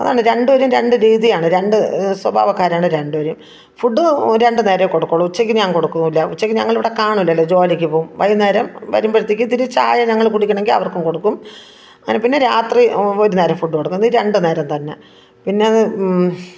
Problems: background conversations at intervals